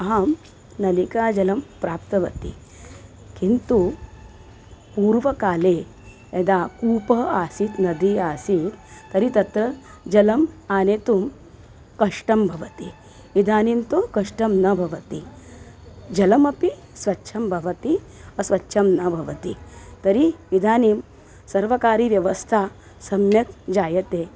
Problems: constant background noise